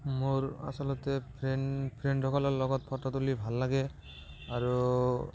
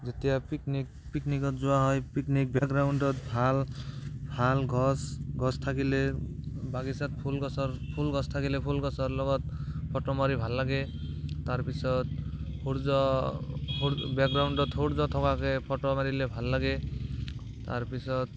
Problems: background sounds at intervals, background conversations at intervals